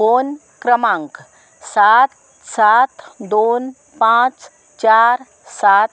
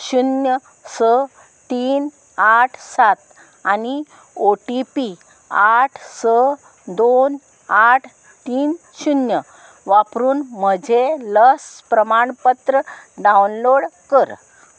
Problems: none marked